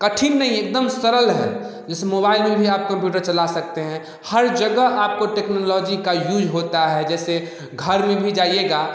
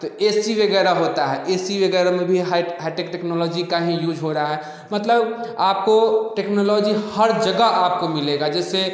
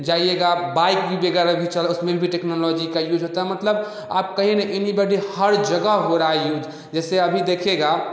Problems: none marked